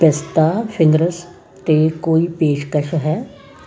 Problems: continuous background conversations